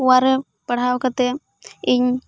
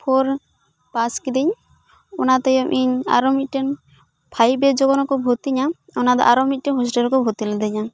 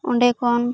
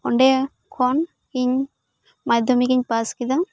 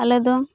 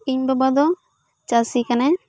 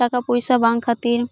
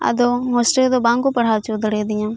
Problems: background conversations at intervals